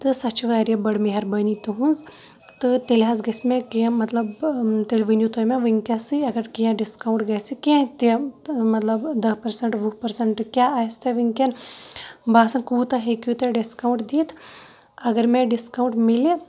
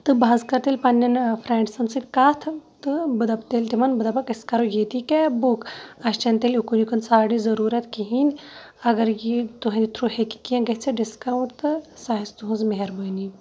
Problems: none marked